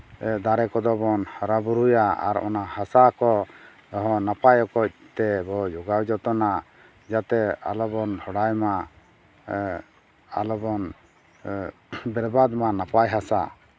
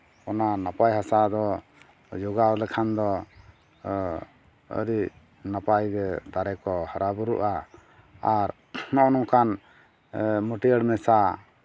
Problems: none marked